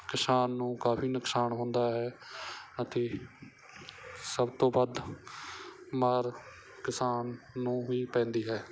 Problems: none marked